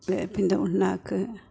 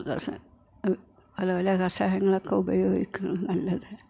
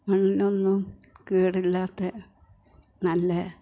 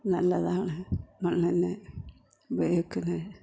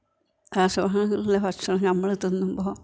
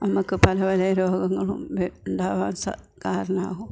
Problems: background conversations at intervals, low volume